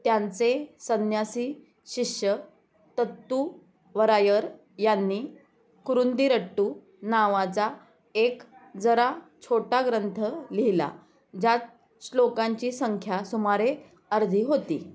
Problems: background sounds at intervals, background conversations at intervals